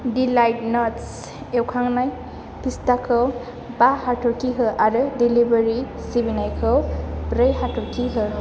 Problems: none marked